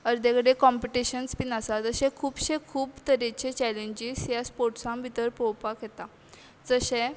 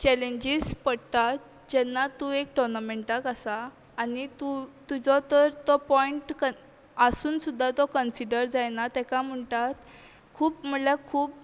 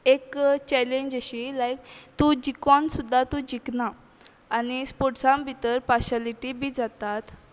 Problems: constant background noise